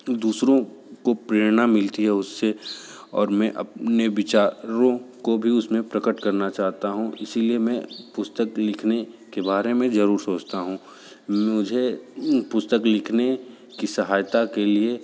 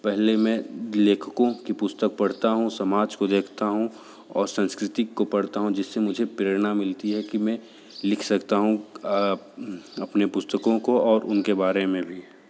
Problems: background sounds at intervals